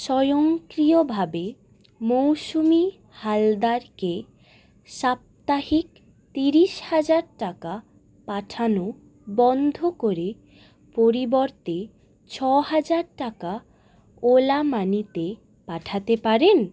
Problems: none marked